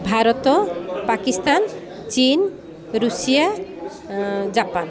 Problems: constant background noise